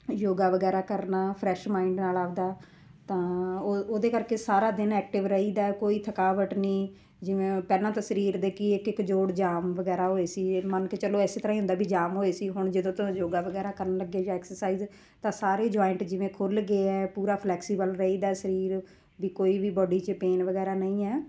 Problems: none marked